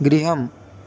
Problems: constant background noise